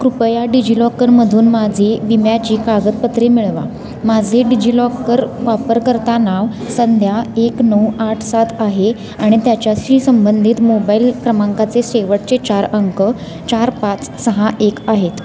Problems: constant background noise, continuous background conversations